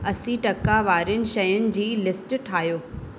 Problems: constant background noise, echo